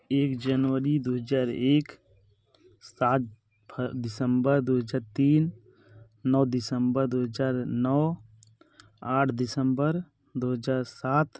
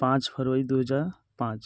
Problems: constant background noise